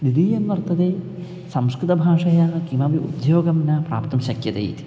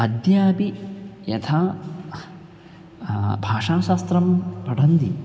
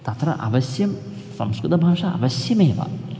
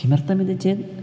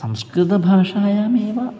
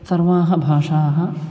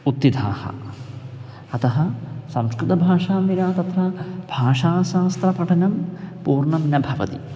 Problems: background sounds at intervals